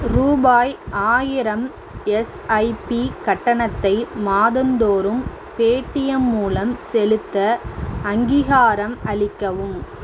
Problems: constant background noise